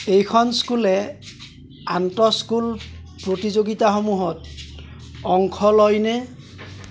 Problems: constant background noise